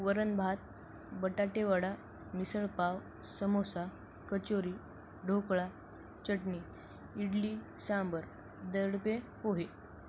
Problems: constant background noise